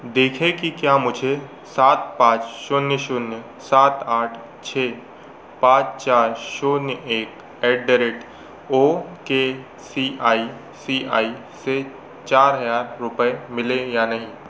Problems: constant background noise